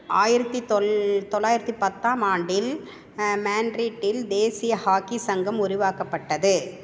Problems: constant background noise